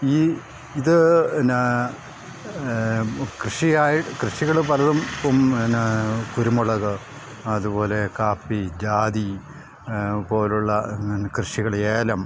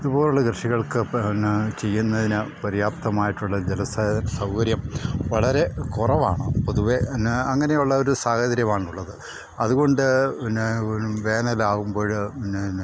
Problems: background sounds at intervals